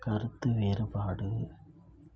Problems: low volume